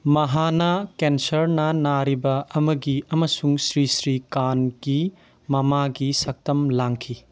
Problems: none marked